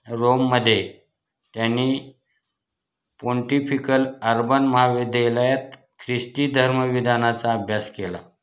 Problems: none marked